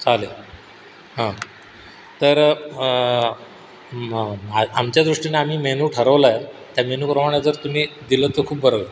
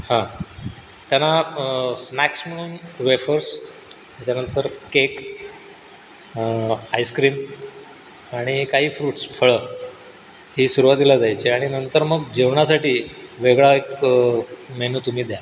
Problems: constant background noise